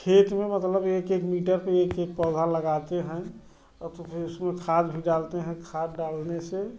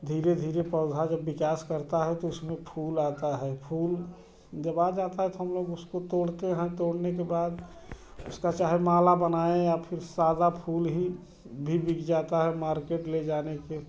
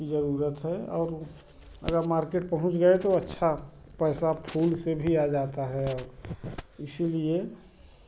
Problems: none marked